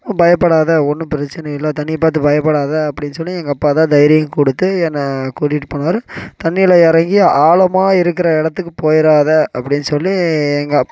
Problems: background sounds at intervals